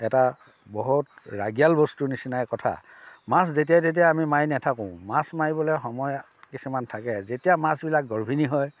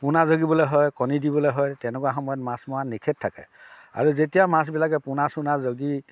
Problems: background sounds at intervals